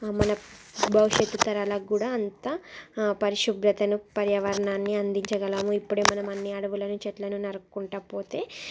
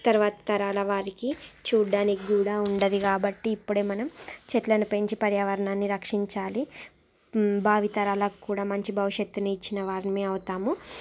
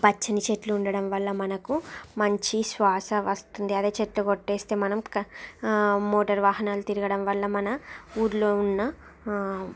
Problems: background sounds at intervals